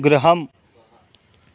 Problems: none marked